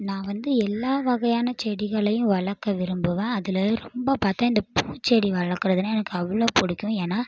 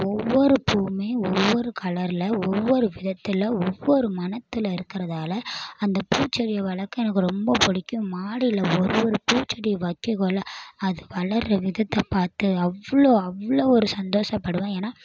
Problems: background sounds at intervals